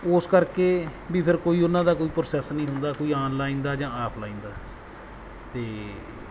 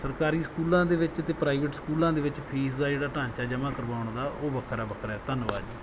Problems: background sounds at intervals